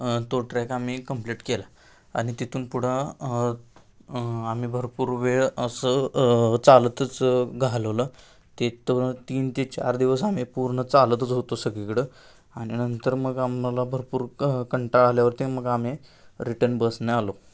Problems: constant background noise